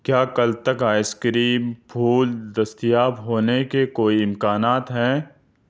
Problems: none marked